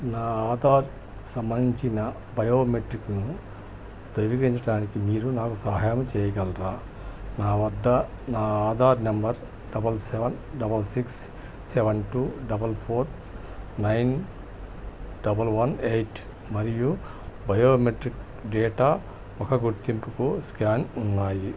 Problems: none marked